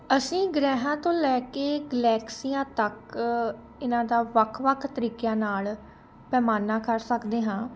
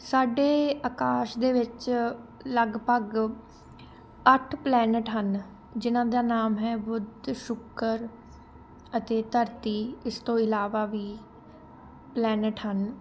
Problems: constant background noise, continuous background conversations